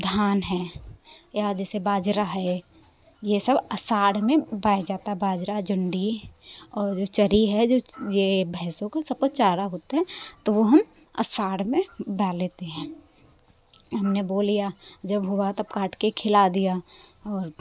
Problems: constant background noise